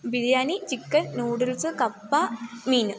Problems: none marked